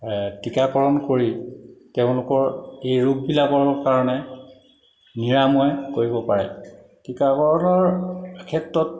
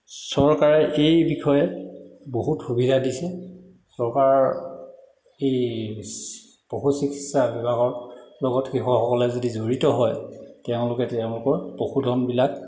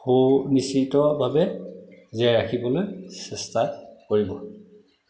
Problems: background sounds at intervals, echo